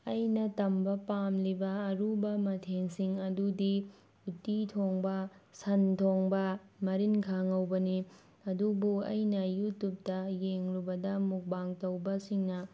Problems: none marked